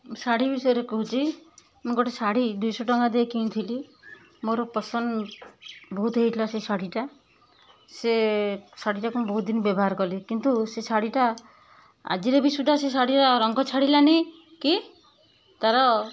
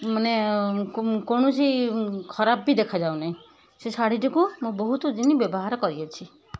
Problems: background sounds at intervals